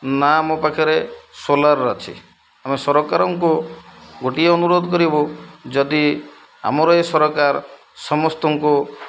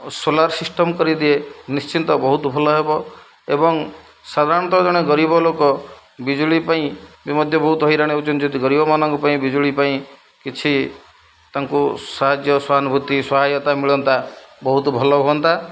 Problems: low volume